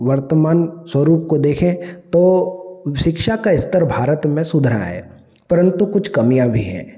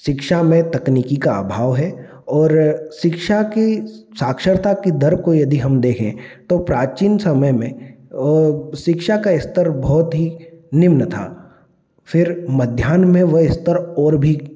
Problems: none marked